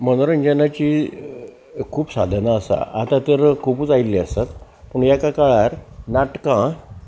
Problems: none marked